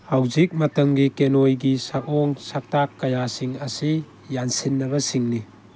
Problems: background sounds at intervals